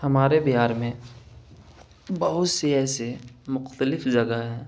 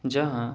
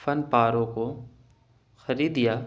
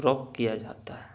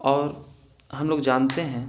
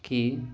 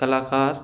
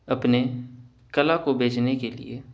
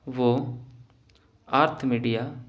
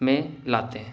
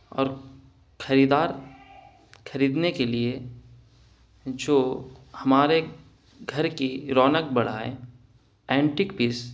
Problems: none marked